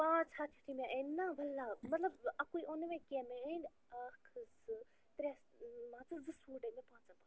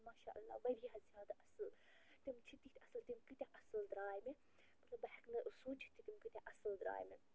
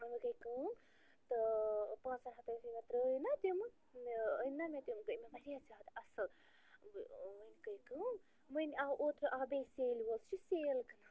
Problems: constant background noise, low volume